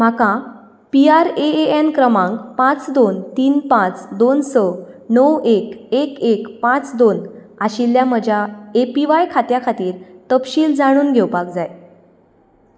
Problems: background sounds at intervals